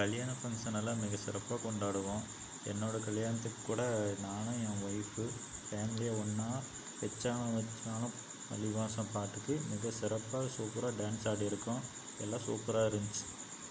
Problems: constant background noise